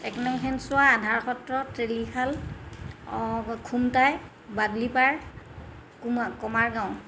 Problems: none marked